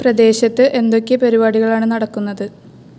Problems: constant background noise